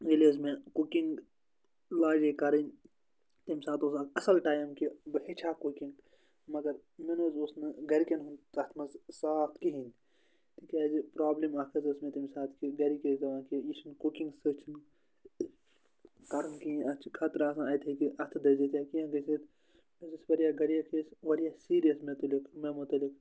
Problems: none marked